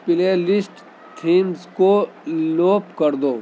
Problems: constant background noise, background conversations at intervals